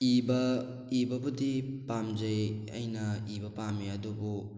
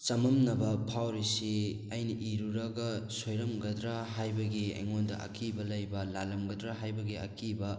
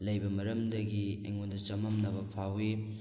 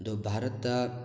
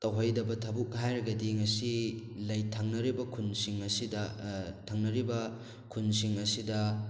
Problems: none marked